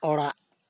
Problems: none marked